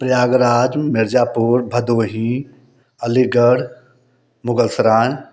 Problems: none marked